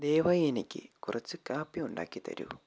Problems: low volume